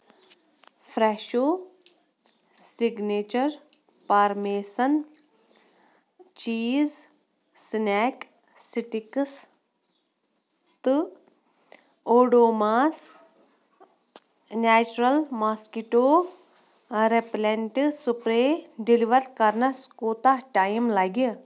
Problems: none marked